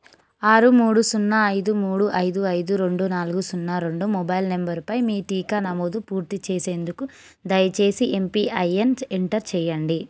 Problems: none marked